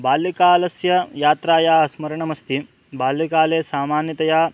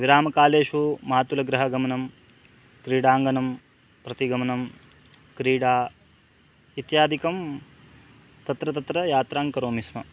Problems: constant background noise